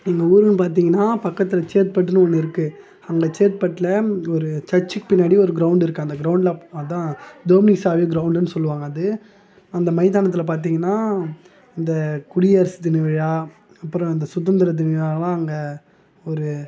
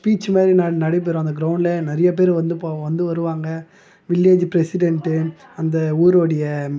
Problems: none marked